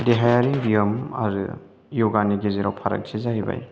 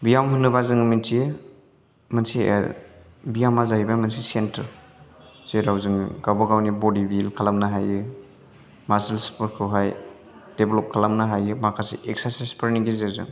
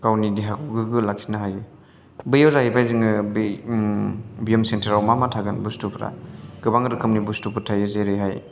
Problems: none marked